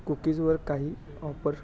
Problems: background sounds at intervals